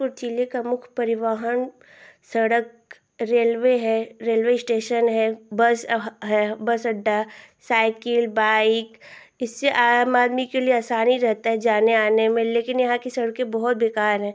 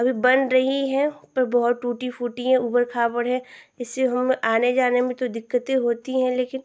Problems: constant background noise